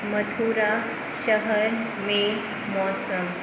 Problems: constant background noise